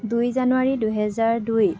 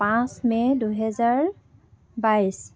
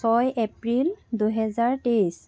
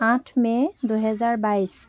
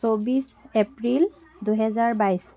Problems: continuous background conversations